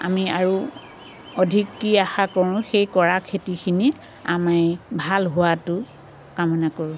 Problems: constant background noise